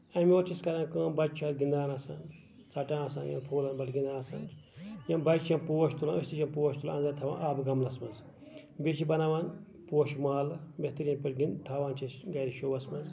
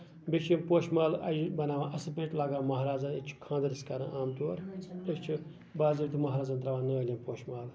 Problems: none marked